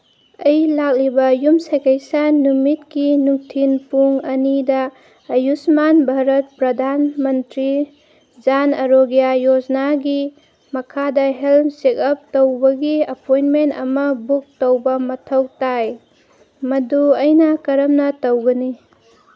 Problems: background sounds at intervals